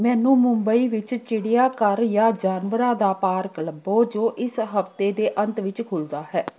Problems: background conversations at intervals